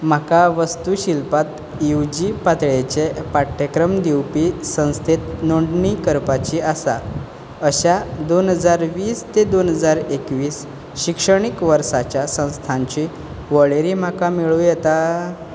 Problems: none marked